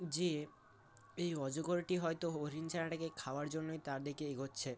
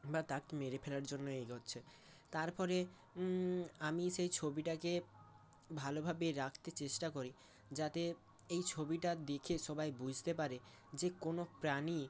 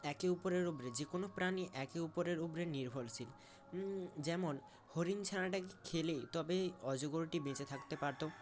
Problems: constant background noise, background conversations at intervals